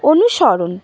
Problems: constant background noise